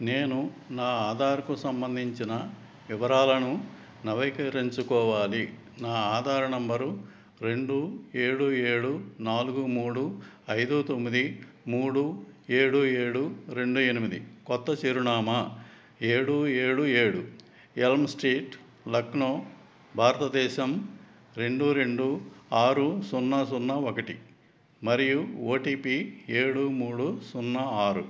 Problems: background conversations at intervals